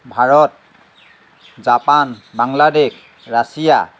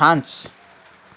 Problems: constant background noise